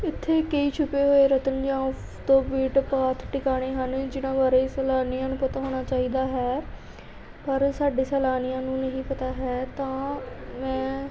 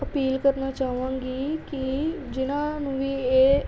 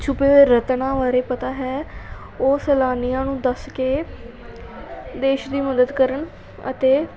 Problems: continuous background conversations